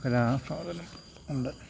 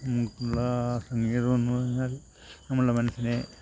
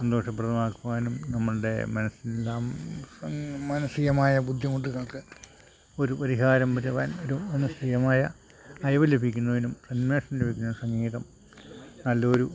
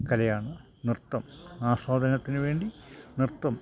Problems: constant background noise, low volume